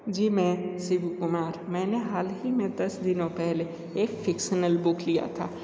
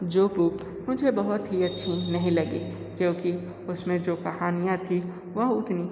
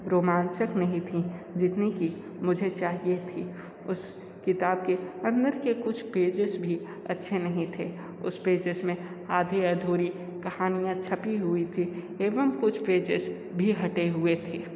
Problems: constant background noise